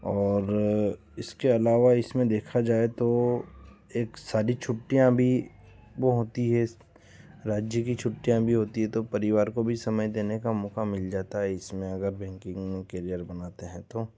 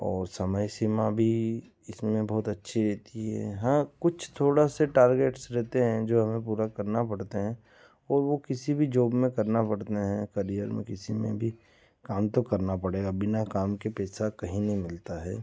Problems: background sounds at intervals